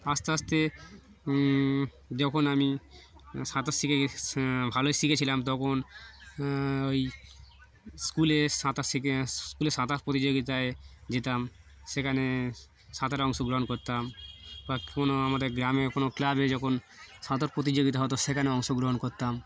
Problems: constant background noise, background conversations at intervals